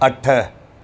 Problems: constant background noise, echo